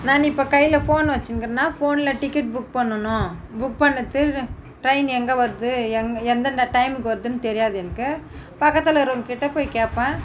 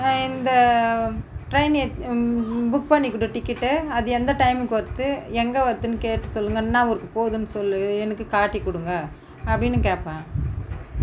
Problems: none marked